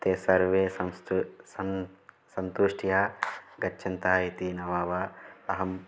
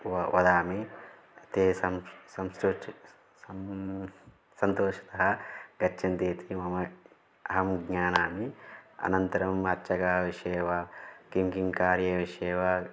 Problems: constant background noise